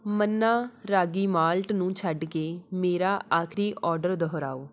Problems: none marked